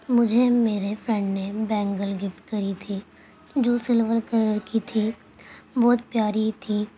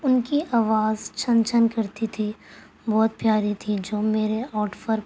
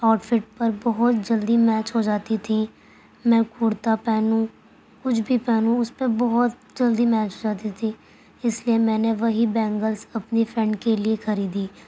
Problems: constant background noise